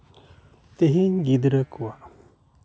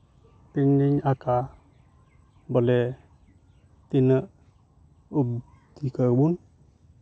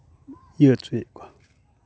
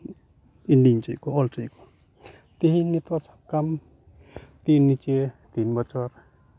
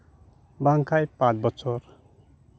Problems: background sounds at intervals